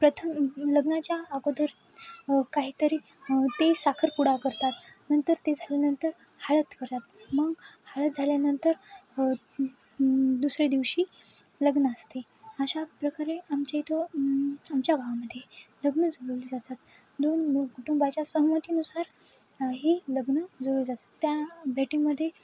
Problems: constant background noise, background conversations at intervals